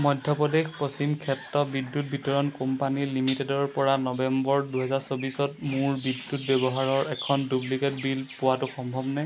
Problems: constant background noise